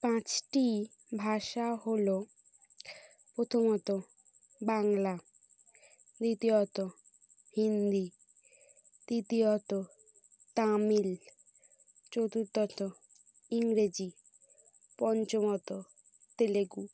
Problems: background sounds at intervals